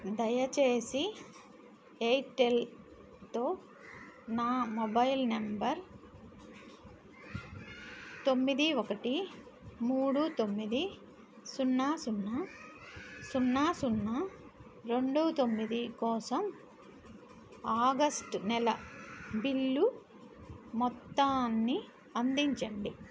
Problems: none marked